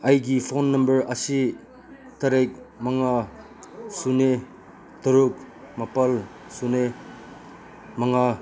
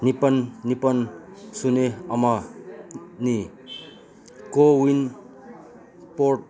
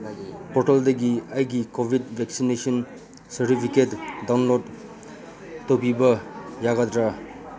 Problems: constant background noise, background conversations at intervals